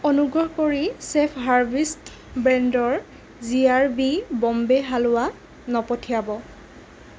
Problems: constant background noise